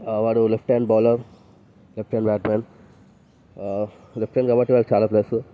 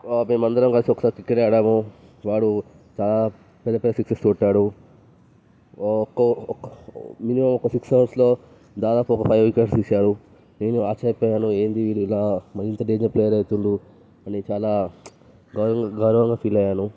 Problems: background sounds at intervals